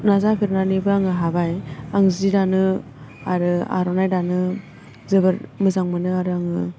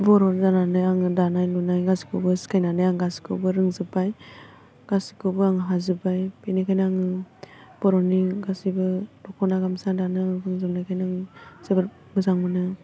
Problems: constant background noise